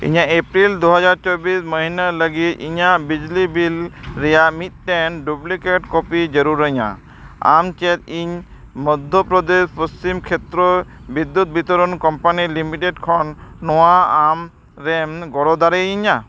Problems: none marked